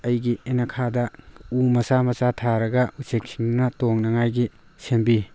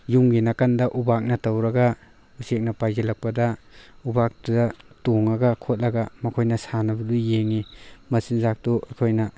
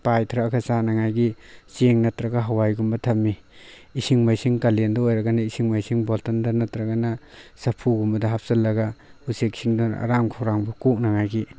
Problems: background sounds at intervals